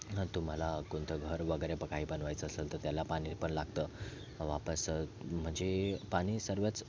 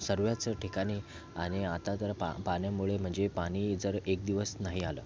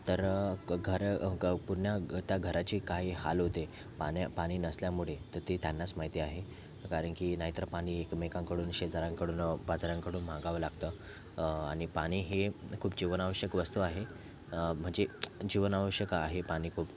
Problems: constant background noise, background conversations at intervals